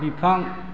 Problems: constant background noise